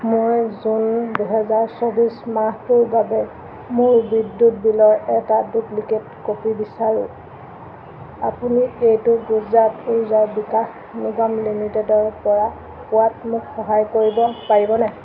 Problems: constant background noise